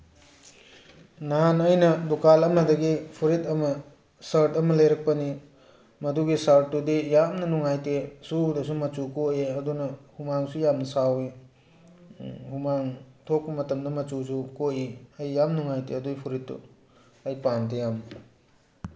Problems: none marked